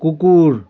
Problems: continuous background conversations